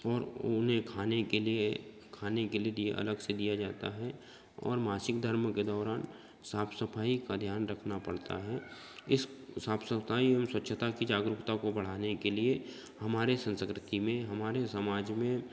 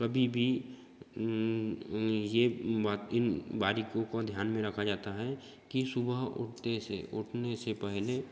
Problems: constant background noise, continuous background conversations